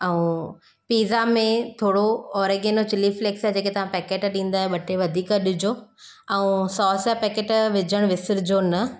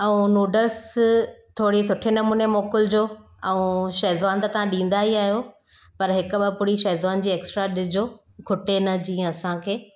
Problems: none marked